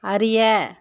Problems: none marked